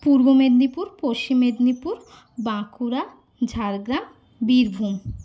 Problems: constant background noise